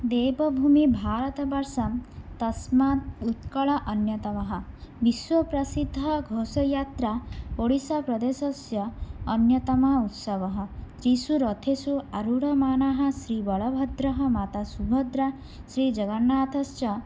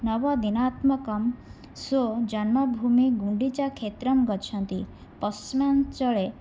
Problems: none marked